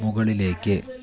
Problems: background conversations at intervals, low volume